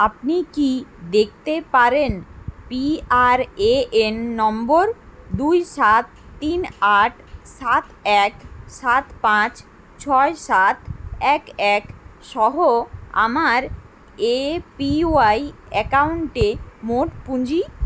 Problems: constant background noise